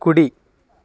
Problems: constant background noise